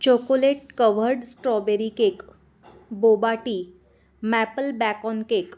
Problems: constant background noise